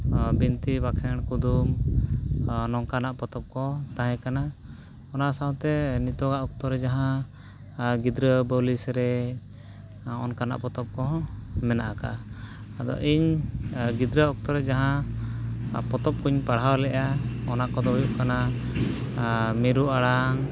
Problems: background sounds at intervals